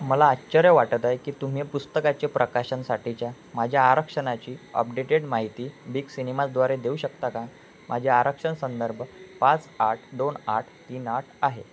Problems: constant background noise